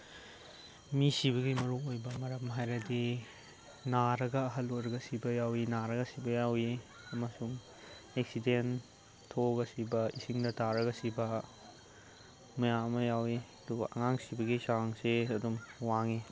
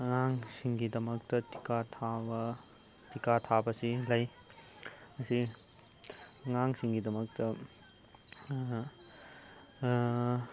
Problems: background sounds at intervals, low volume